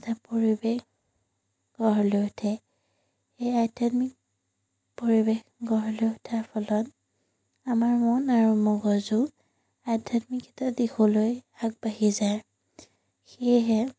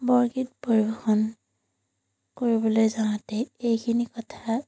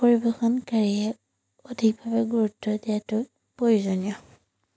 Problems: none marked